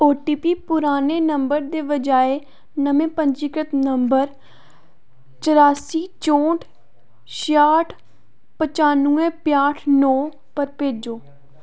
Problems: none marked